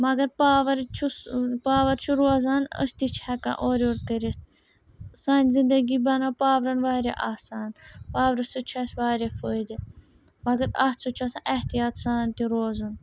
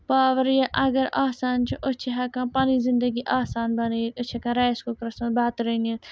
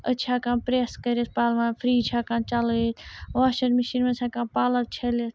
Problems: background sounds at intervals